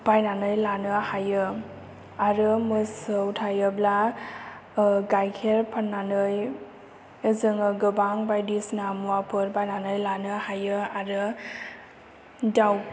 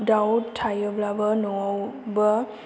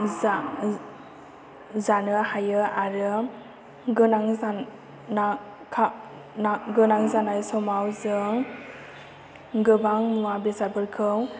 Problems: low volume